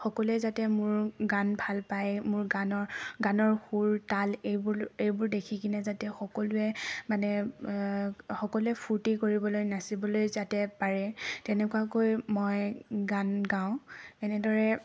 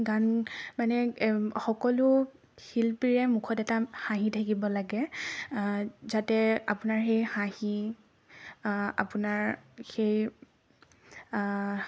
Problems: none marked